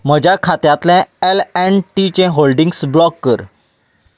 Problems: background sounds at intervals